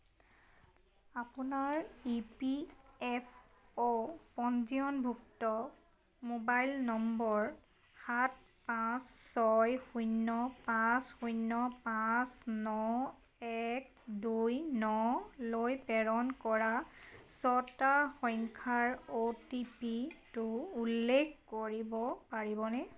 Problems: background conversations at intervals